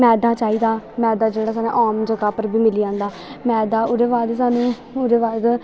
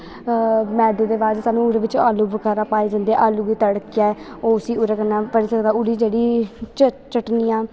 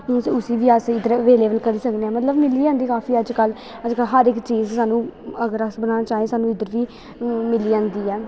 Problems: constant background noise